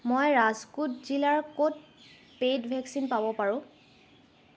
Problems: constant background noise